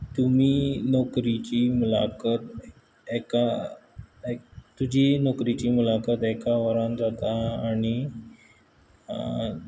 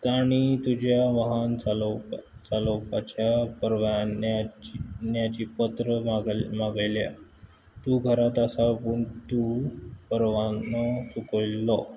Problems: background sounds at intervals